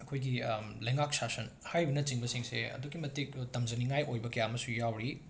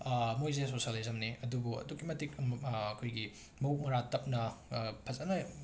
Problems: background sounds at intervals